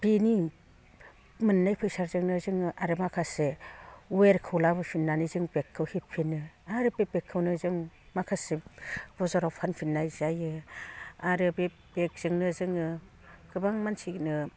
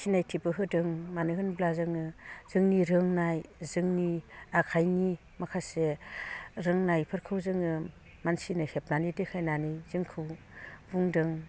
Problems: low volume